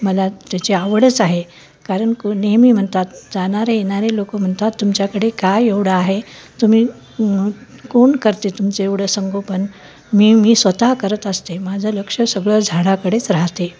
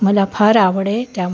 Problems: none marked